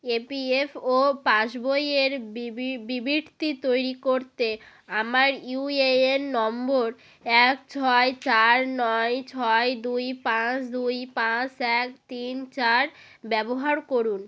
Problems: background sounds at intervals